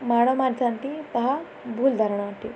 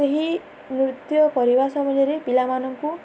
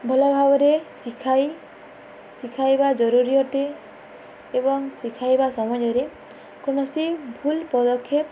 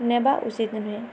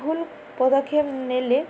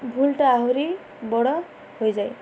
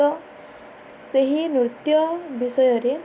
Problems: none marked